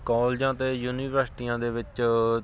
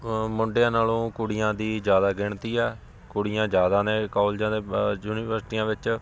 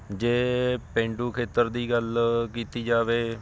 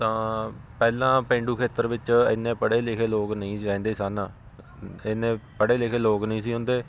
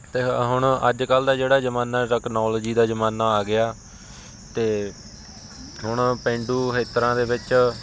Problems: constant background noise, background conversations at intervals